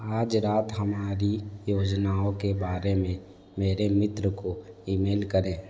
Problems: background sounds at intervals